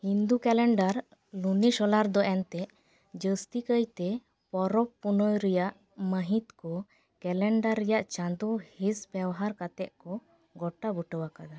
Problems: none marked